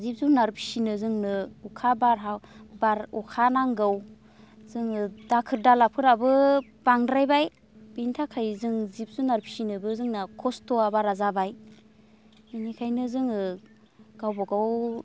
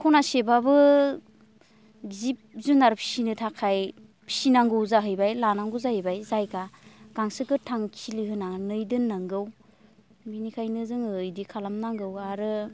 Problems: constant background noise